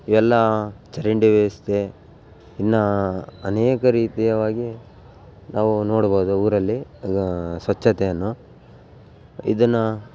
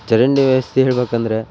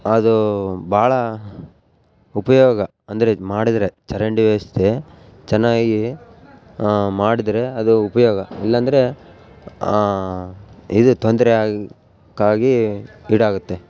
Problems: background sounds at intervals